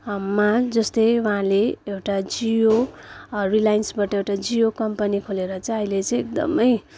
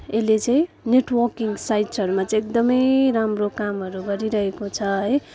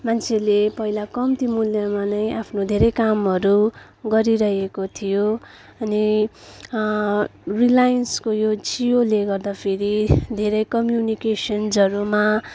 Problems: constant background noise, background conversations at intervals